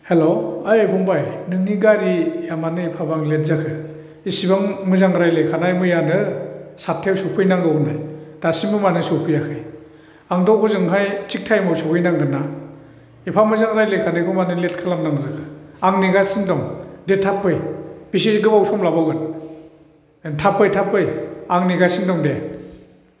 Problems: echo